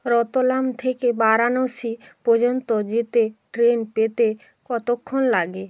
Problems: none marked